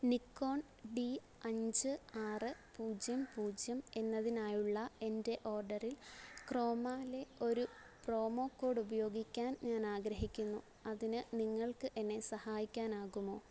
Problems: background sounds at intervals, low volume